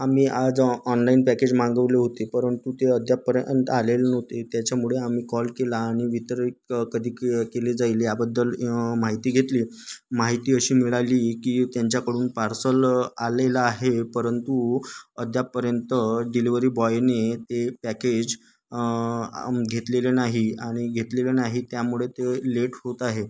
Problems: constant background noise, background conversations at intervals